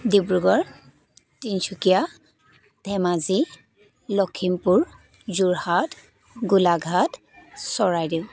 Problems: continuous background conversations